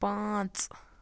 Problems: none marked